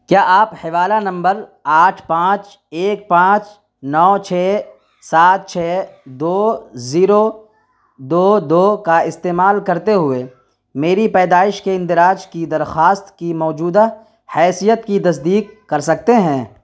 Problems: constant background noise